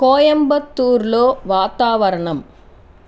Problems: constant background noise